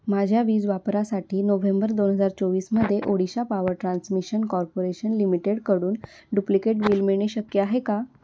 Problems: constant background noise